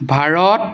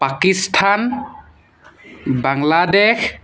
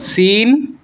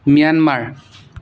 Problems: background sounds at intervals